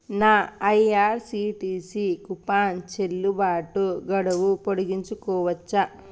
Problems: none marked